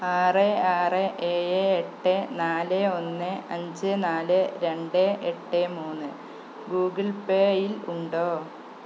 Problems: constant background noise, low volume